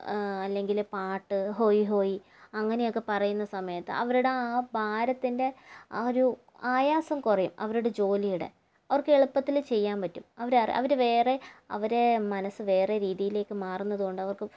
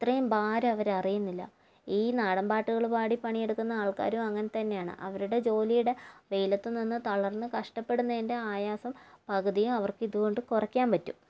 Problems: low volume